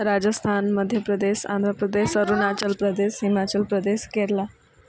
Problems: background conversations at intervals